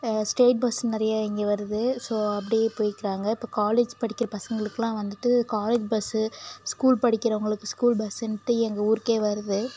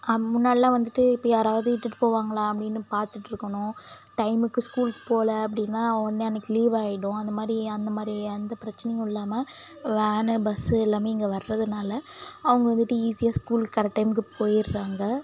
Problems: none marked